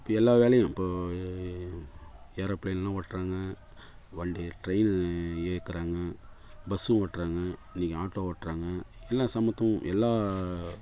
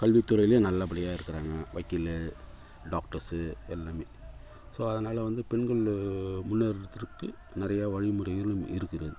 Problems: constant background noise